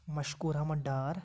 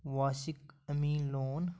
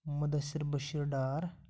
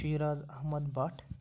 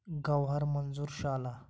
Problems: none marked